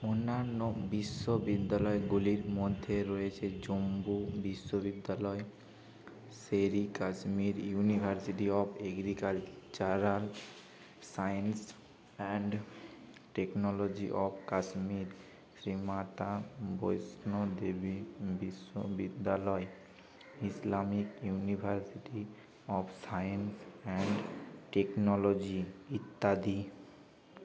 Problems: constant background noise, background conversations at intervals